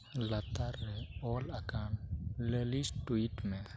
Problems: none marked